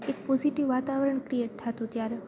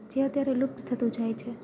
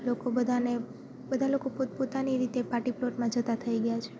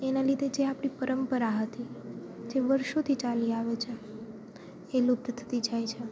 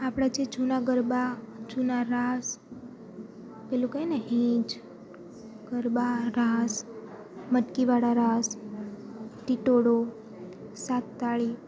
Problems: none marked